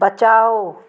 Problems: none marked